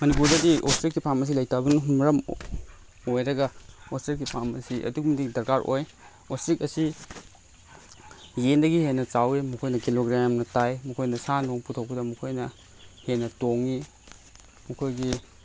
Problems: constant background noise